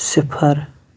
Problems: none marked